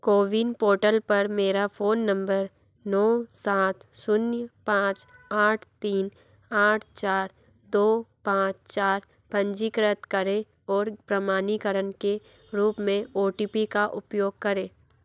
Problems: background sounds at intervals